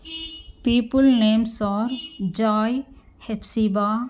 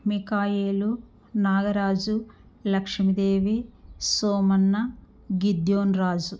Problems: background sounds at intervals